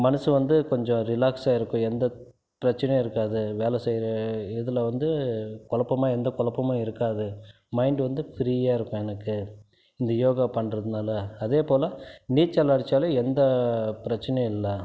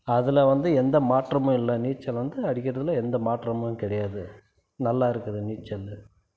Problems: none marked